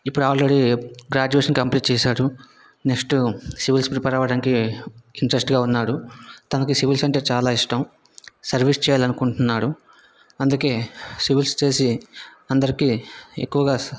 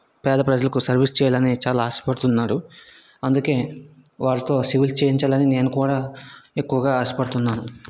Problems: background conversations at intervals